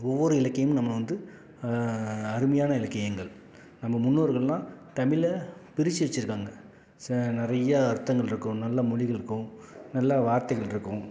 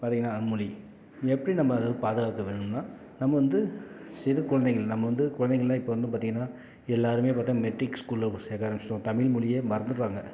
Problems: none marked